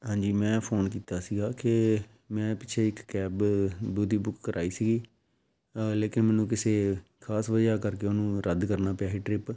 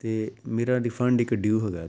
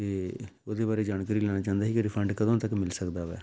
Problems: background sounds at intervals